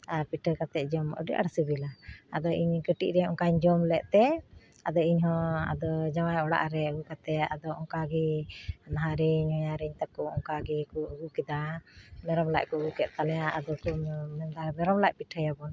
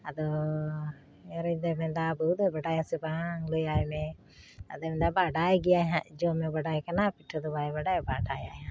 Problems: none marked